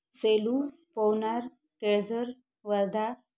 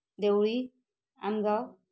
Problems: none marked